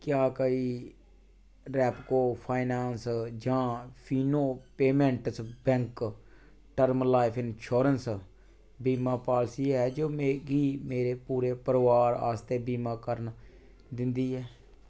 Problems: background sounds at intervals